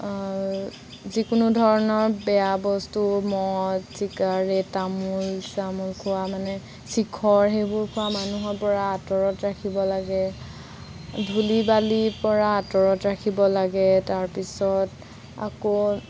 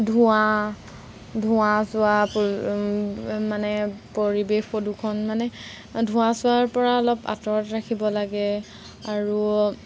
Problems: constant background noise